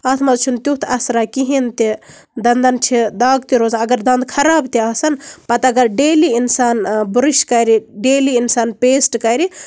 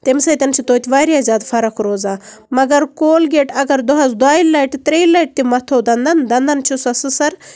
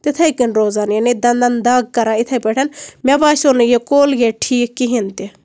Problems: none marked